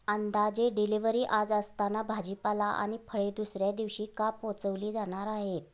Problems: background sounds at intervals, background conversations at intervals